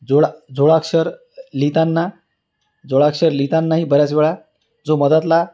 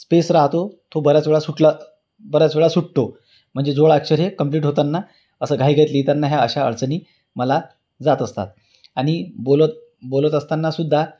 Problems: background sounds at intervals